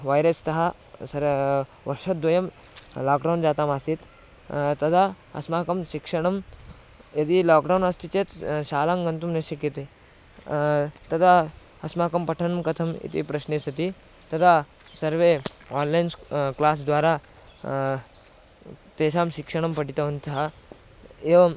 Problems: none marked